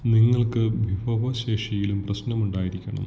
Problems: low volume